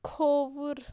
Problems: constant background noise